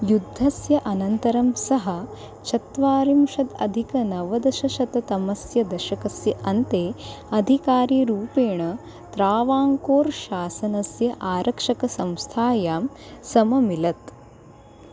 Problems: constant background noise